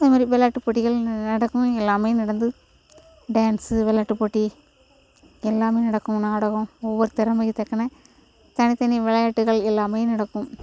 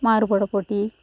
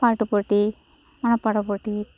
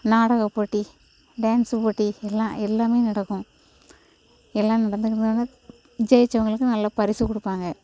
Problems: constant background noise